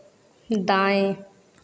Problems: none marked